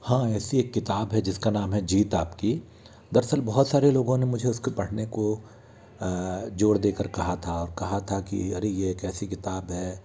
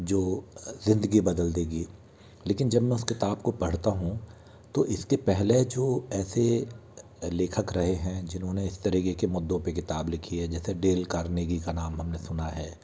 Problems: constant background noise